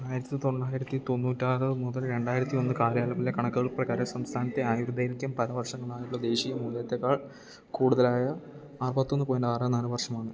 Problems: low volume